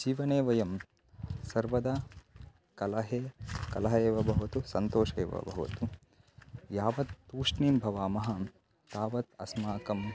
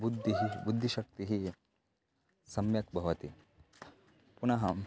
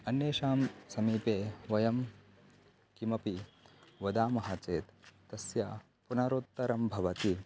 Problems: constant background noise